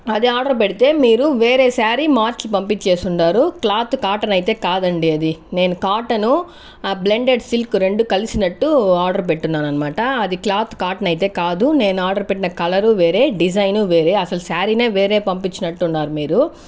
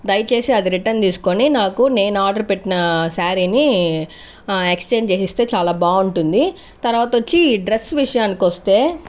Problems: none marked